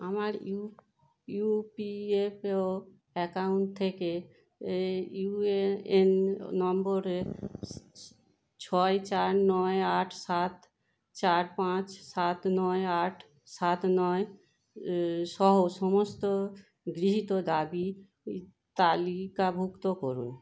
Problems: constant background noise